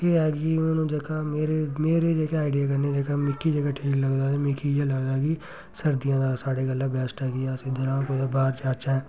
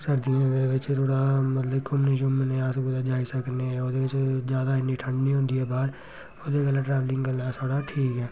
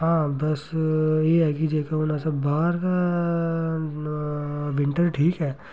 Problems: constant background noise